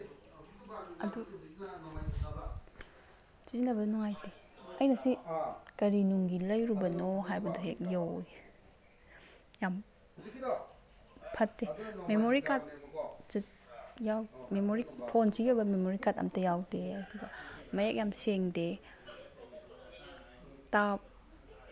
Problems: background sounds at intervals